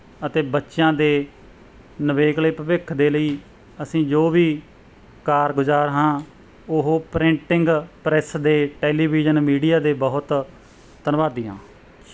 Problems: background sounds at intervals